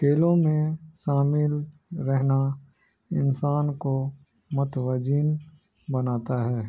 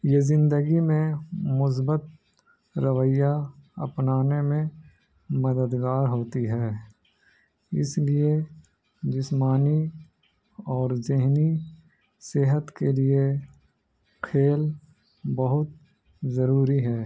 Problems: none marked